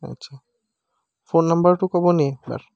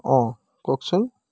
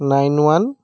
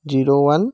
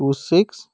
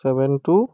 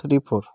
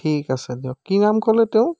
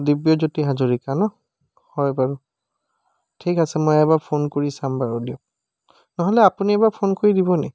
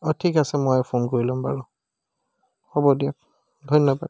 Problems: background sounds at intervals